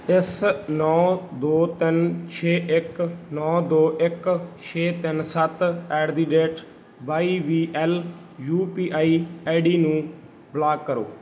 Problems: background sounds at intervals